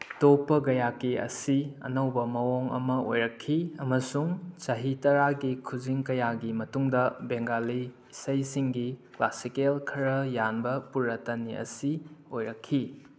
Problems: none marked